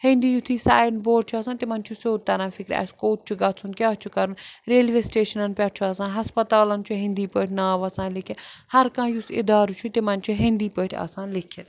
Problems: constant background noise